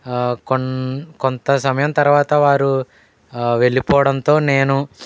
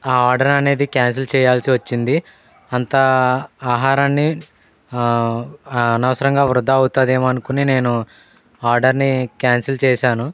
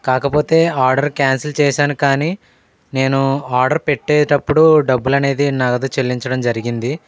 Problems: background sounds at intervals, background conversations at intervals